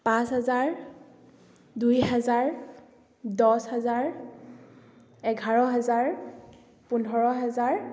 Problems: echo